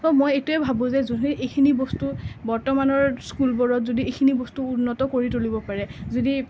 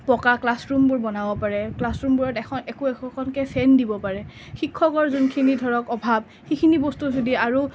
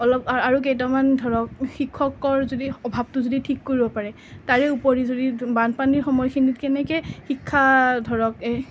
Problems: background sounds at intervals